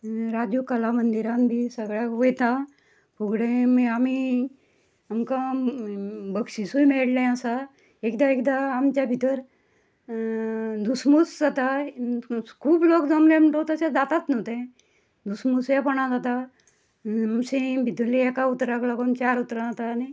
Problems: none marked